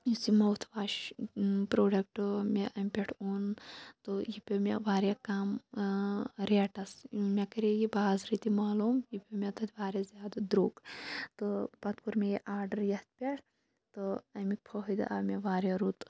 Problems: low volume